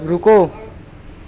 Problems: constant background noise, background conversations at intervals